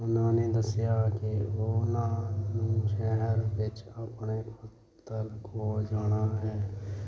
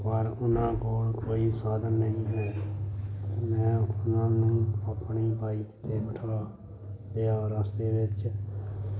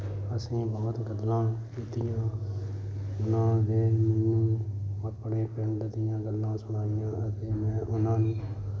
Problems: background sounds at intervals